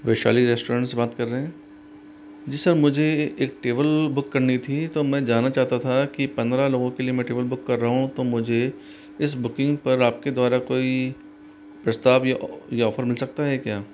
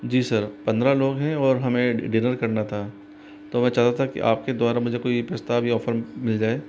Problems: constant background noise